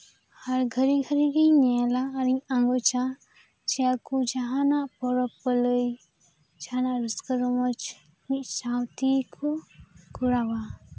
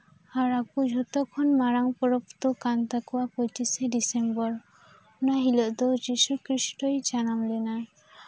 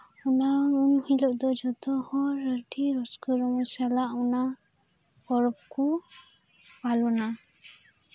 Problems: none marked